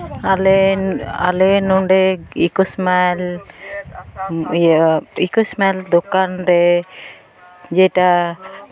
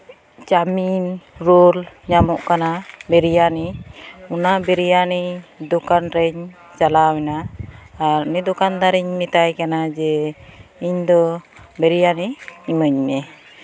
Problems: constant background noise, continuous background conversations